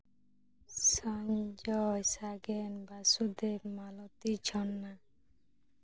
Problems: low volume